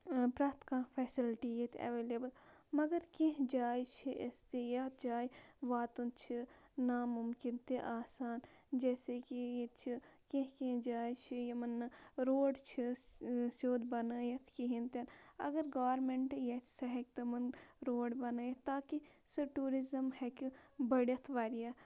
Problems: constant background noise